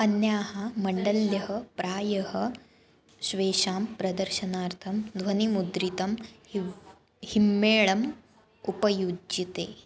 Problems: background conversations at intervals